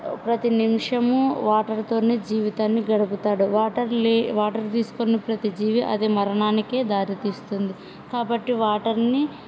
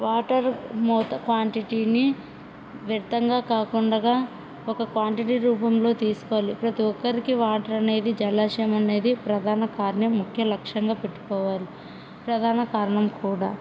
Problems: background sounds at intervals, background conversations at intervals